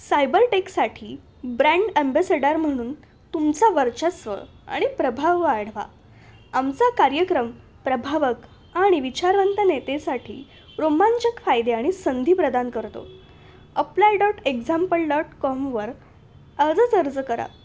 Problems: constant background noise